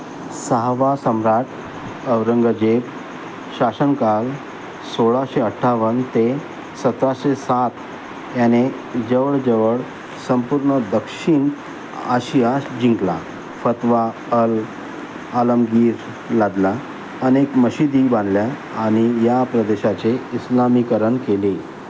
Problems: constant background noise